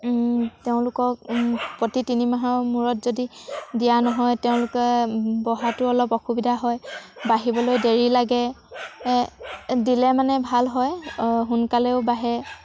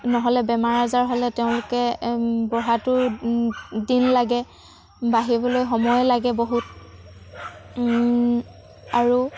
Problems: none marked